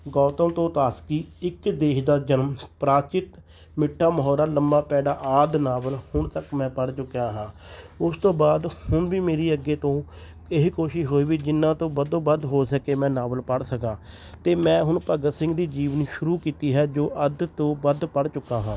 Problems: constant background noise